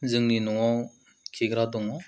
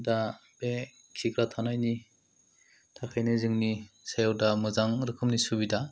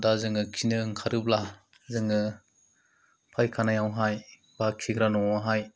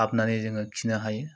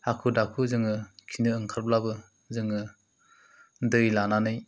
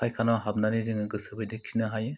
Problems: low volume